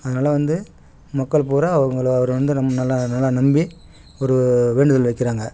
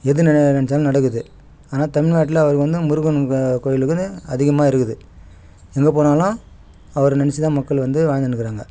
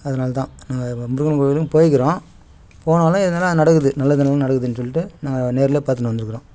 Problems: none marked